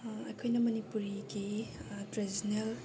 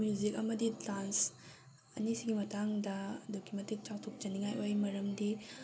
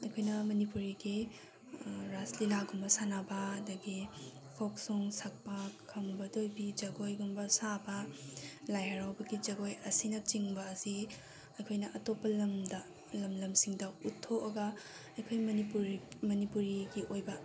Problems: background sounds at intervals